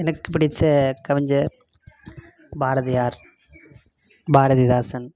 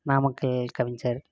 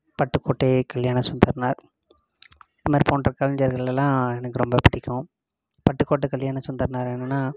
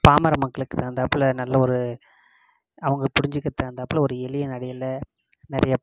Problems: constant background noise